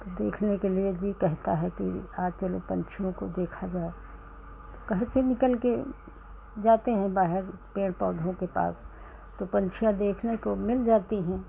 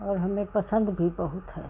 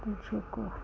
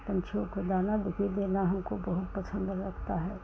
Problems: none marked